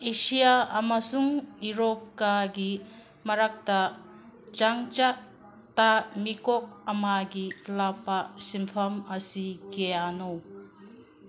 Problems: constant background noise, background conversations at intervals